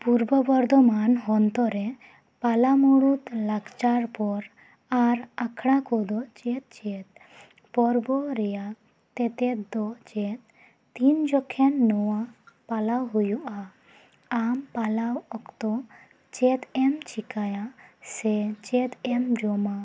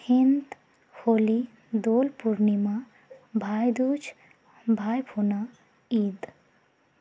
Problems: background sounds at intervals